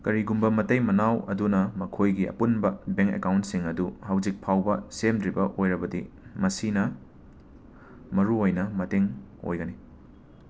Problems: constant background noise